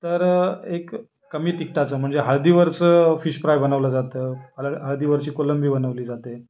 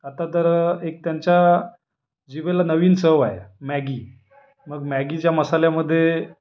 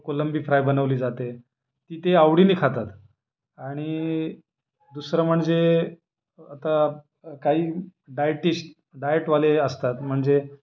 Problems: none marked